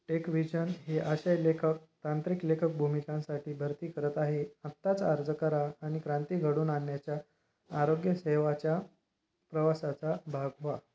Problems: none marked